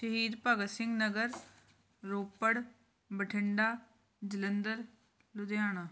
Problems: none marked